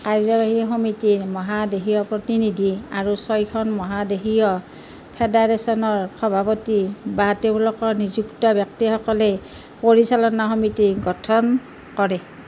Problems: background sounds at intervals